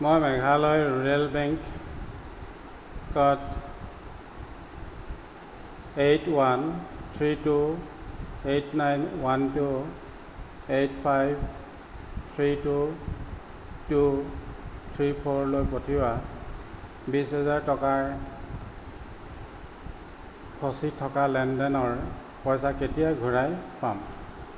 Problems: background sounds at intervals